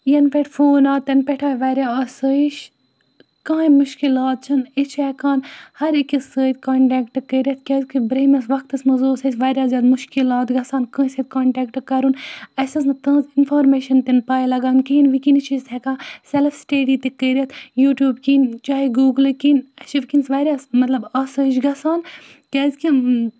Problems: background sounds at intervals